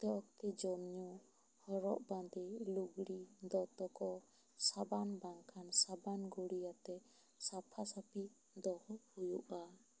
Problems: low volume